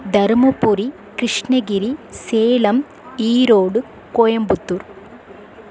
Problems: constant background noise